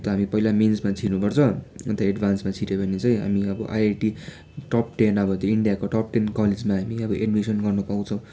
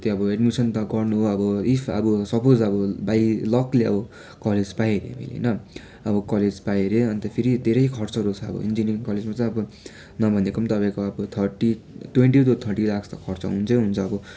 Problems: constant background noise